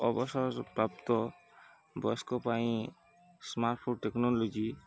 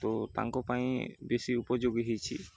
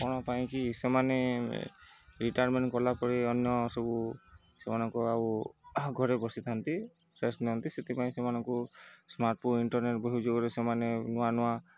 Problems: none marked